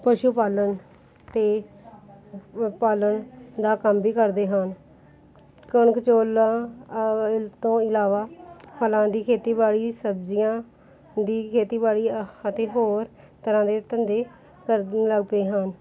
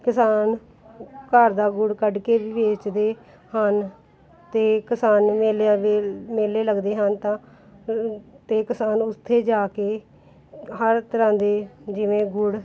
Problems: background sounds at intervals, background conversations at intervals